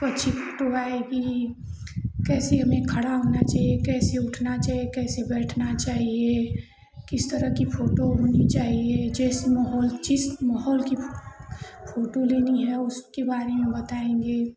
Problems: constant background noise, continuous background conversations